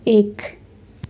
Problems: constant background noise